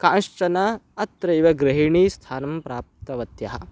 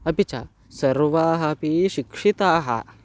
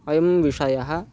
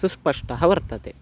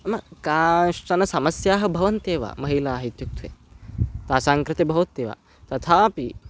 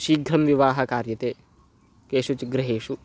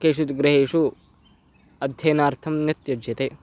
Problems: constant background noise